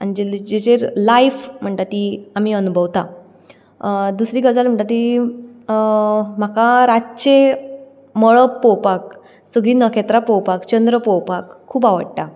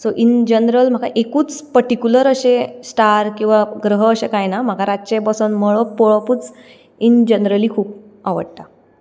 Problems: none marked